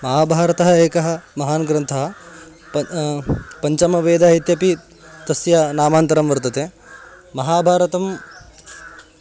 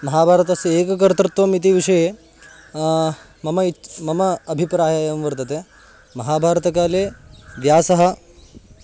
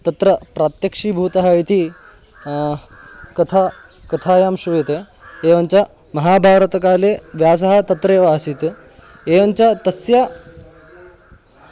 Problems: none marked